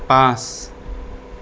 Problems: constant background noise